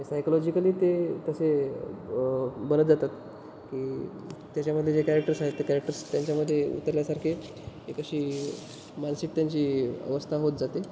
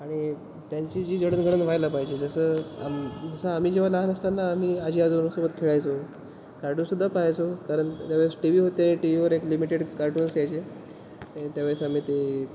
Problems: constant background noise